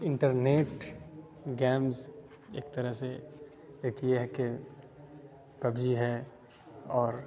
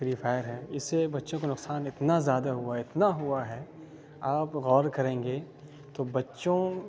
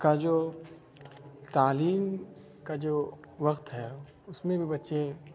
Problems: constant background noise